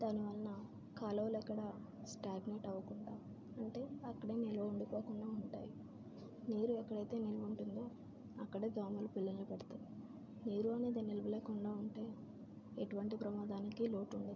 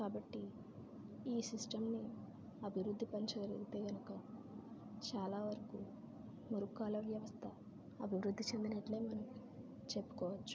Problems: constant background noise, low volume